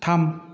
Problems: constant background noise